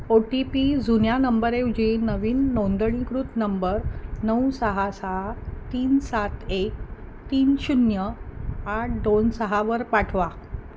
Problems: none marked